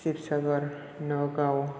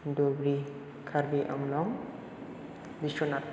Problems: none marked